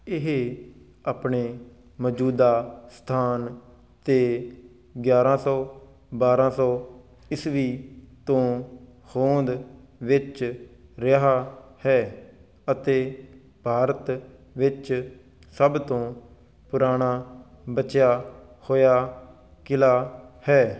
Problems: background sounds at intervals